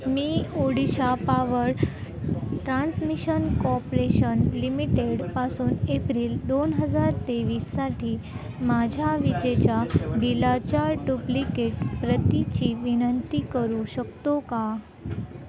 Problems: constant background noise, continuous background conversations